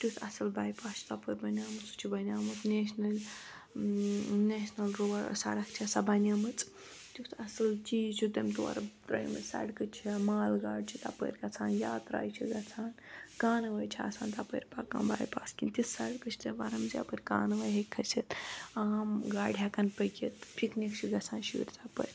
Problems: constant background noise